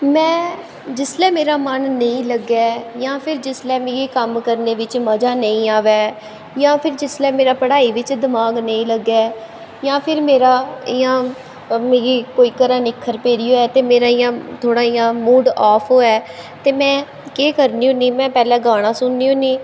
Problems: echo